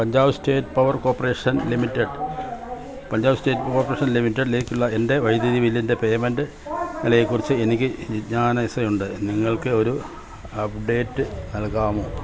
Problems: constant background noise